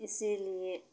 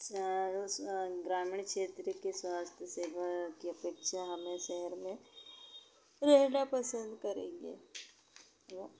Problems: constant background noise